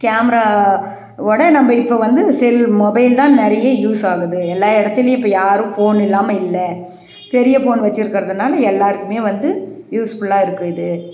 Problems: none marked